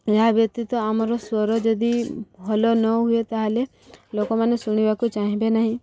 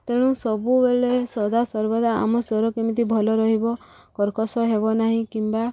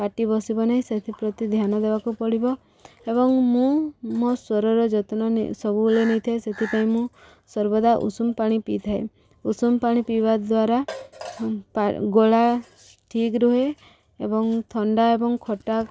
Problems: background sounds at intervals